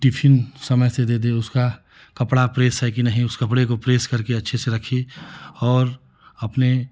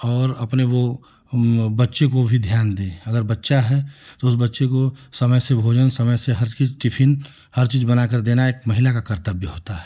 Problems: none marked